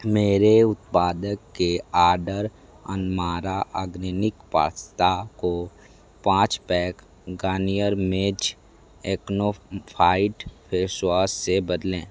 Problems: constant background noise